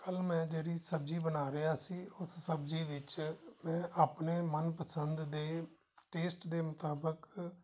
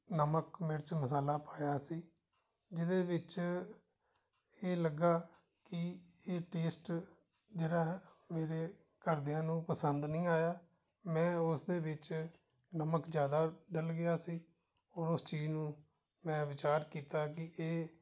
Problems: background sounds at intervals